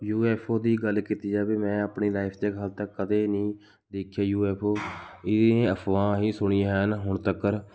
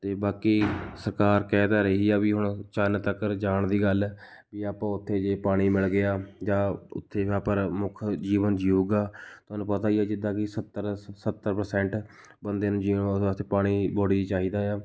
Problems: none marked